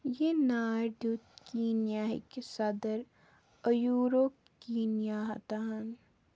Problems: background sounds at intervals, low volume